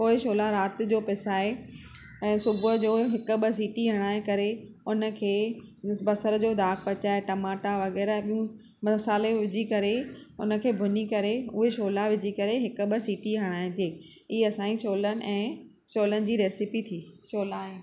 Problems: constant background noise